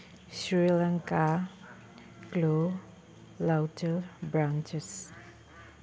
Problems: background sounds at intervals